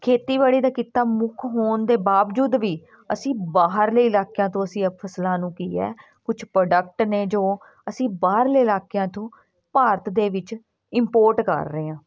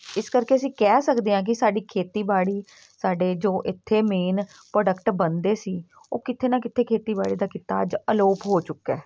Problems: background sounds at intervals, background conversations at intervals